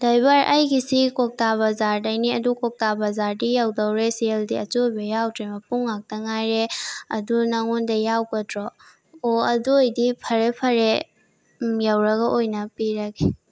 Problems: constant background noise